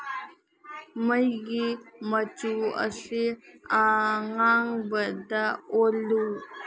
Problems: background conversations at intervals